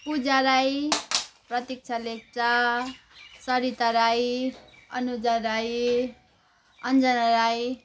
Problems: background conversations at intervals